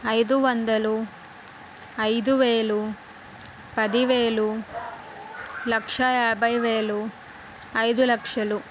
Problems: constant background noise